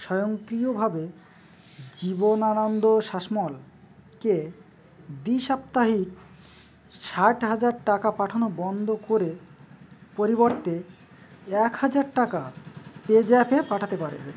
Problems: constant background noise